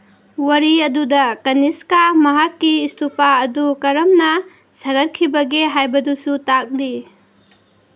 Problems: background sounds at intervals